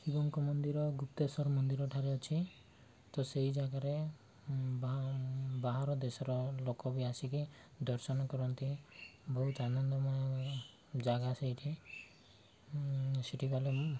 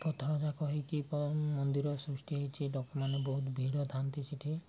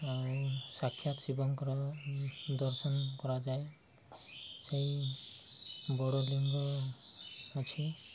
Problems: background sounds at intervals